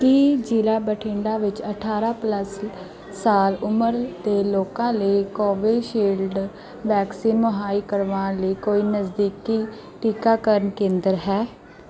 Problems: background sounds at intervals